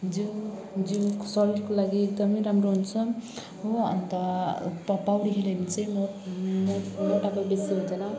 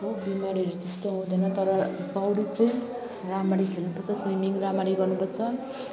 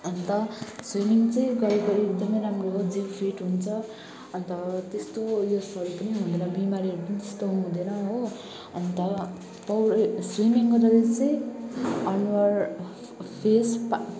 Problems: constant background noise